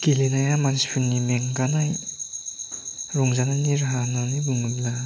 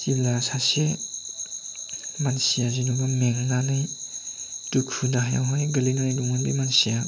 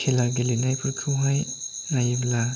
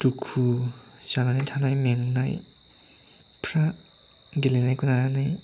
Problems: none marked